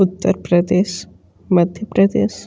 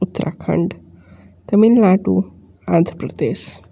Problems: none marked